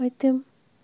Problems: constant background noise, low volume